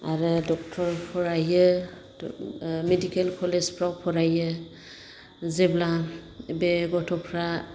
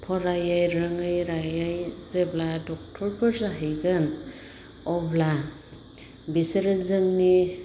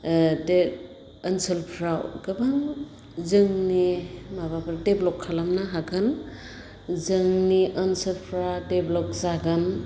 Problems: constant background noise